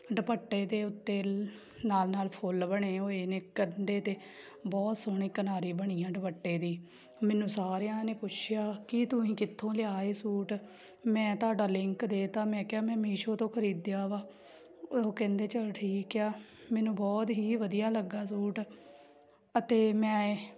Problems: constant background noise